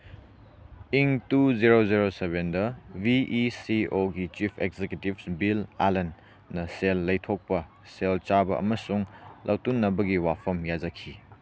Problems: background sounds at intervals